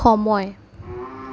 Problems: background sounds at intervals